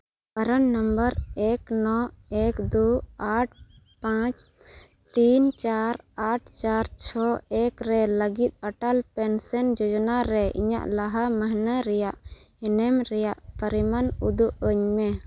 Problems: none marked